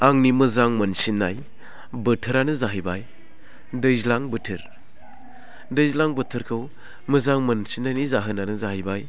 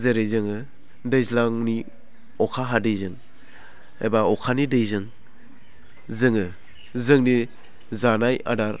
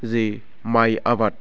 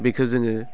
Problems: none marked